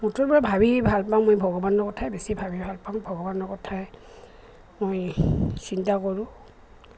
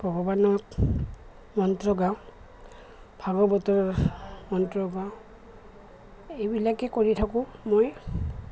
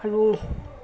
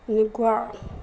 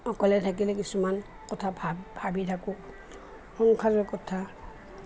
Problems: constant background noise